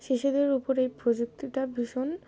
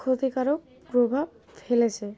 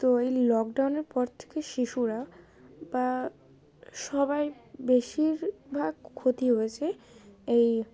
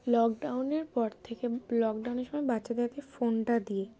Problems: constant background noise, continuous background conversations